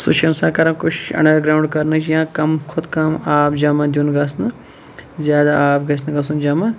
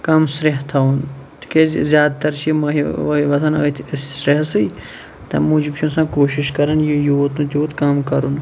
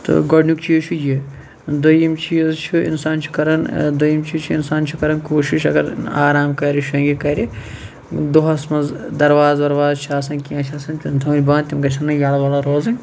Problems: none marked